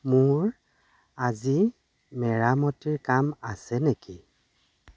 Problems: none marked